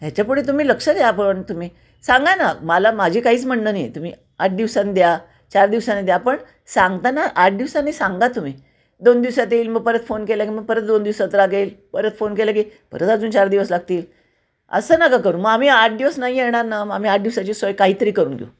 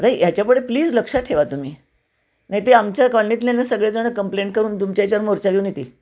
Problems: constant background noise, echo